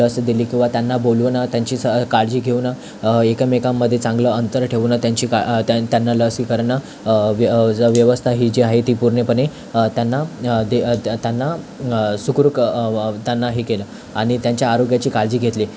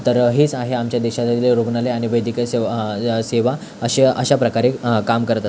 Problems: constant background noise